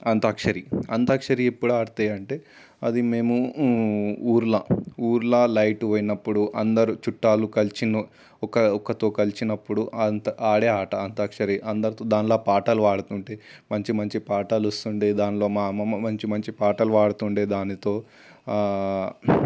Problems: constant background noise